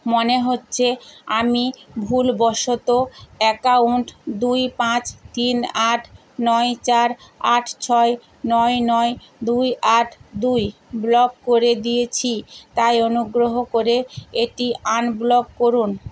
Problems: constant background noise